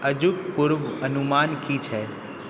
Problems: background sounds at intervals